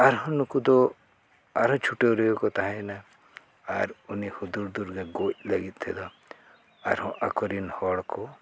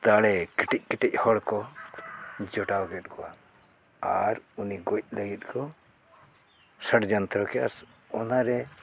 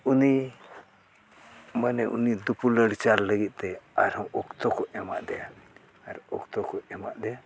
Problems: background sounds at intervals